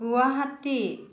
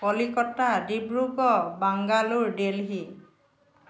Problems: background conversations at intervals